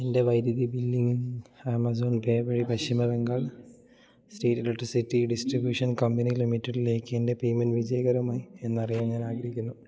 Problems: low volume